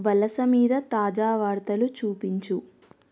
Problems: none marked